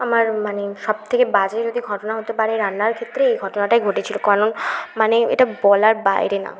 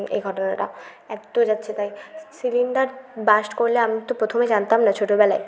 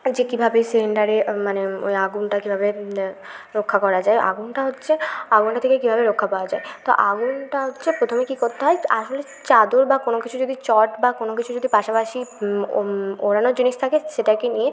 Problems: constant background noise, background conversations at intervals